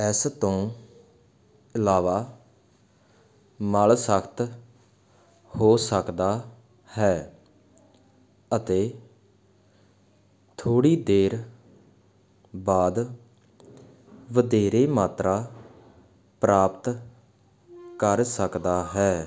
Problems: background sounds at intervals